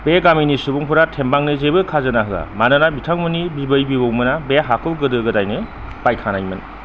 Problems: none marked